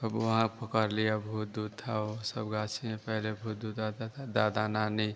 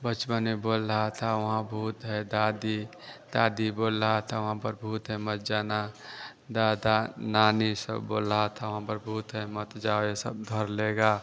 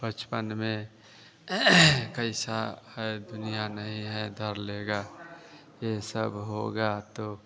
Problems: none marked